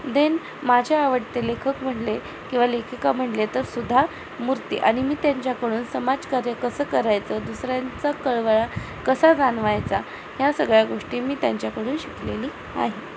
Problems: constant background noise